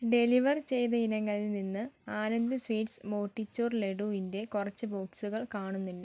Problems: none marked